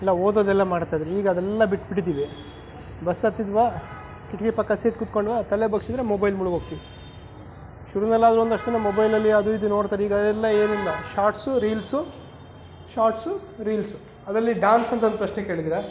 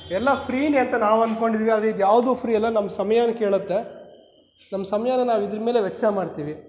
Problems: background sounds at intervals